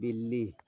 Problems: background conversations at intervals, low volume